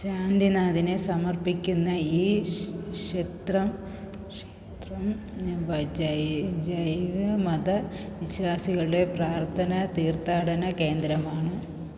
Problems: low volume